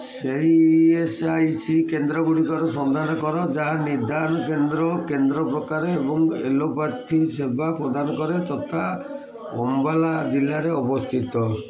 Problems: constant background noise, continuous background conversations